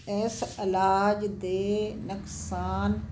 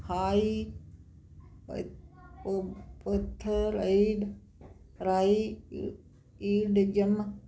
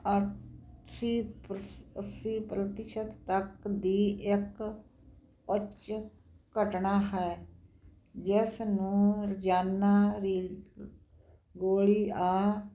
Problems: constant background noise